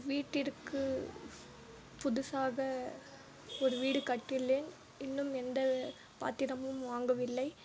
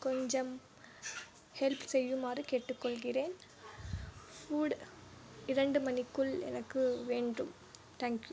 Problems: low volume